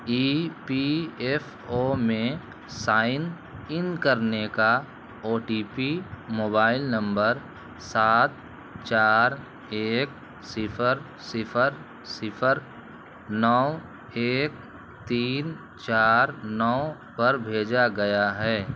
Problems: constant background noise